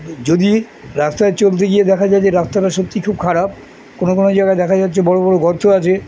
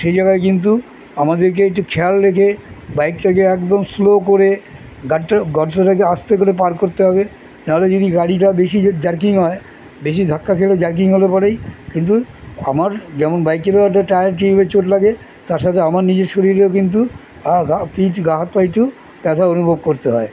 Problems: constant background noise, continuous background conversations